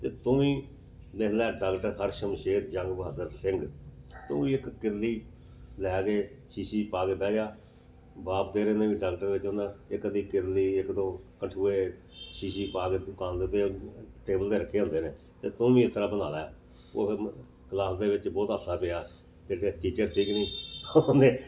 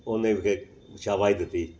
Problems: background sounds at intervals